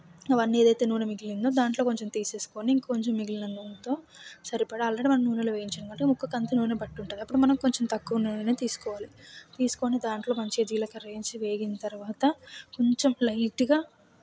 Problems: none marked